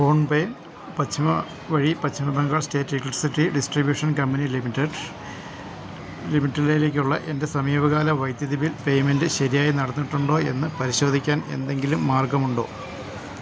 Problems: none marked